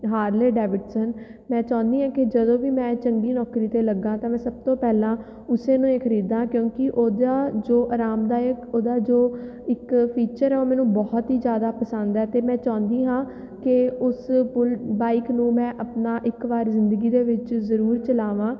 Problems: none marked